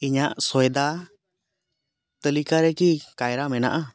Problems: none marked